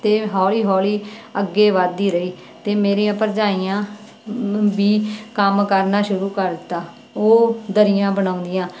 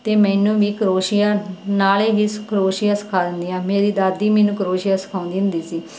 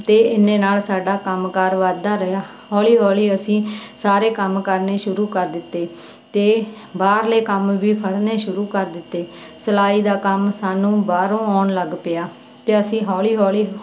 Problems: none marked